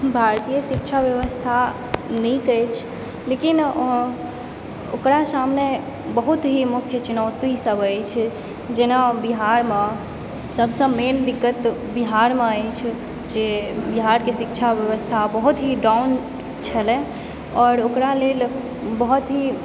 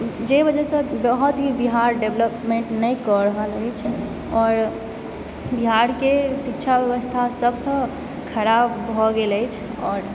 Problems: constant background noise